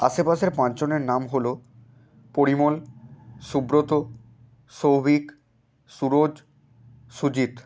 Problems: background sounds at intervals